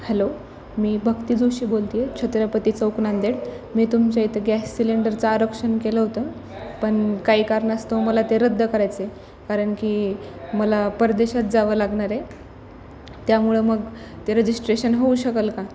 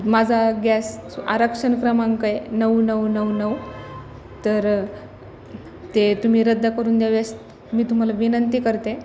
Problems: none marked